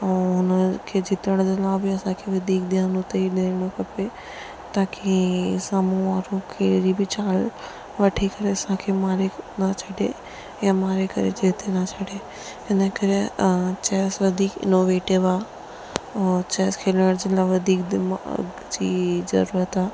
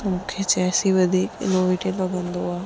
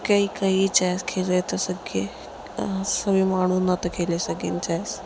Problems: constant background noise, low volume